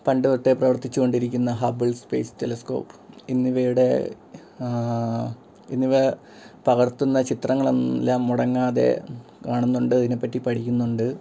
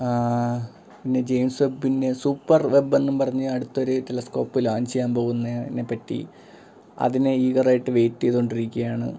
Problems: background sounds at intervals